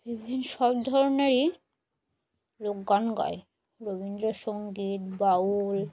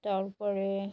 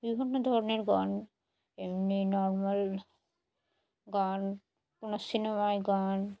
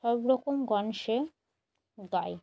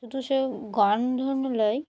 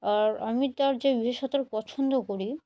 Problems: none marked